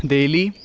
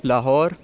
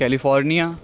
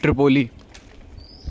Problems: constant background noise